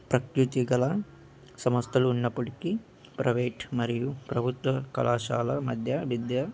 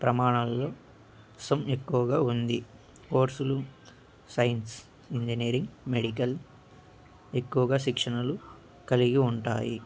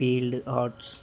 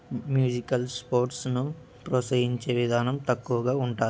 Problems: constant background noise